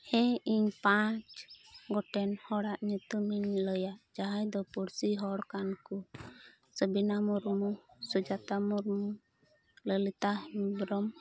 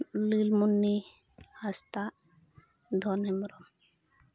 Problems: none marked